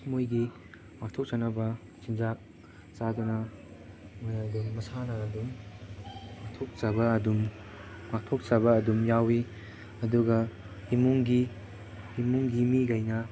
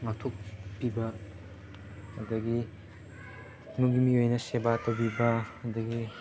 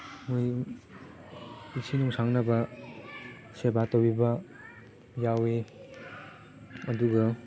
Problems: background sounds at intervals, background conversations at intervals